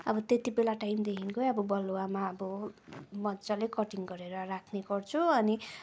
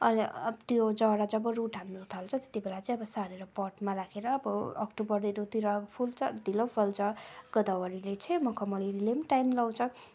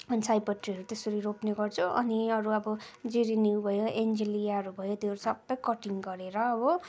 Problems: background sounds at intervals